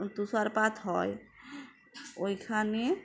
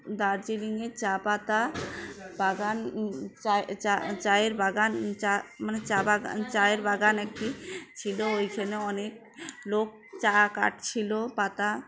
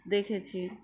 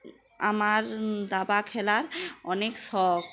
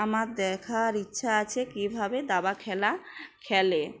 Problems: constant background noise, background conversations at intervals